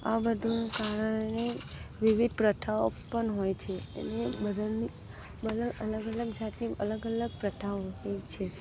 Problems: background sounds at intervals, low volume